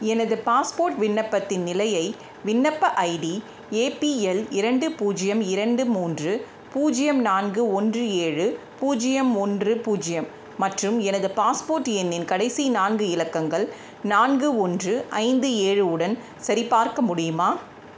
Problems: constant background noise